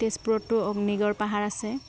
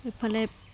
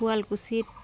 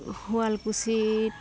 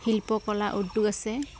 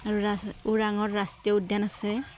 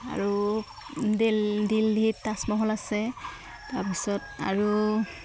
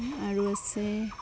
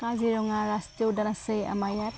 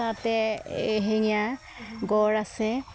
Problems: background sounds at intervals